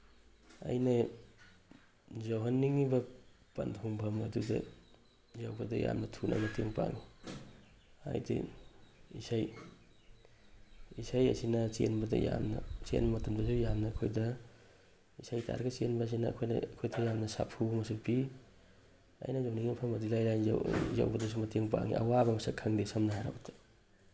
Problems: background sounds at intervals